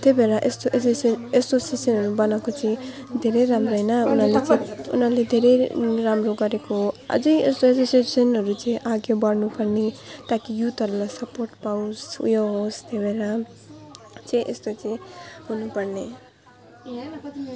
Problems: constant background noise